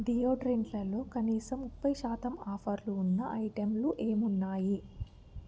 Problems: none marked